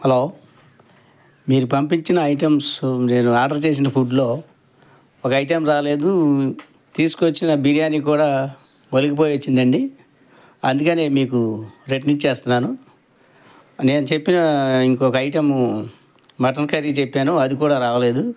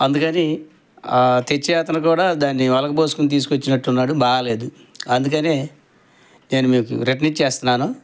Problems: none marked